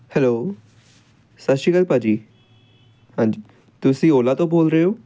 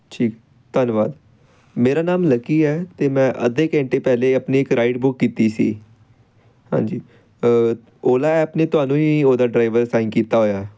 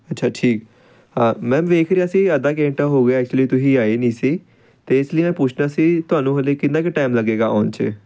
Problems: background sounds at intervals